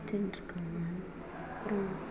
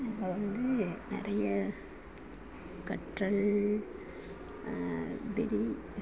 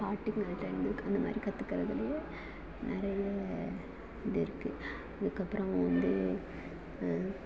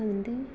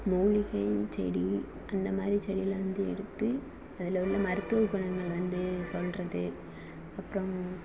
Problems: constant background noise, background conversations at intervals, low volume